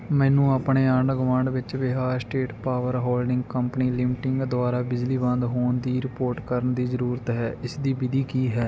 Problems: none marked